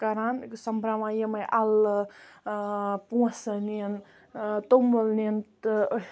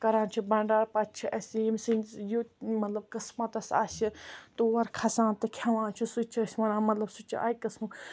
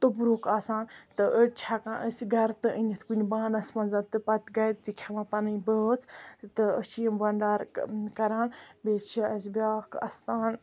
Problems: constant background noise